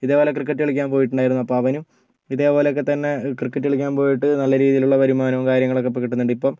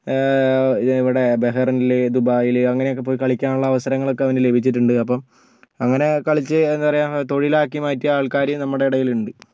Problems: none marked